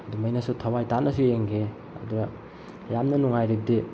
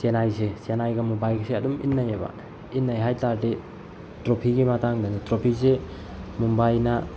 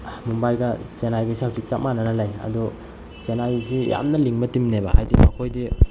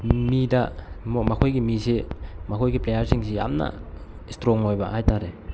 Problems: constant background noise